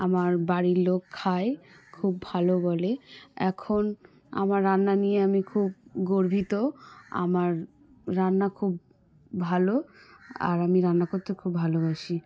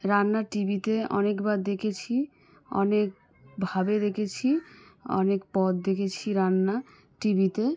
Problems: background sounds at intervals, background conversations at intervals